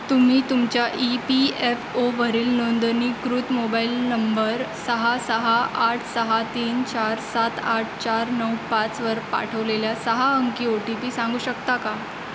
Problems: constant background noise